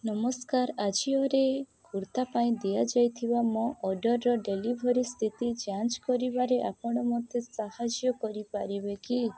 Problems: none marked